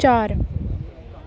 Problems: constant background noise